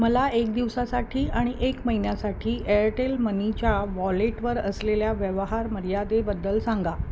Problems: none marked